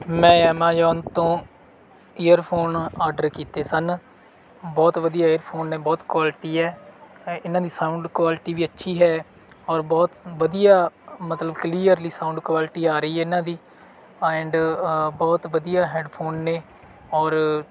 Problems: background sounds at intervals